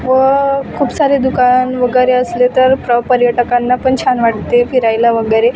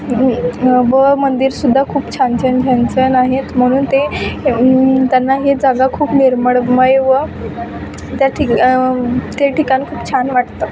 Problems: constant background noise, background conversations at intervals